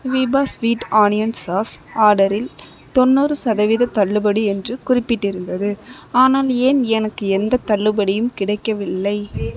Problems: background conversations at intervals